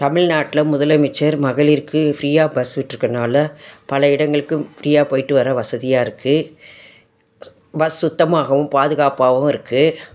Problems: constant background noise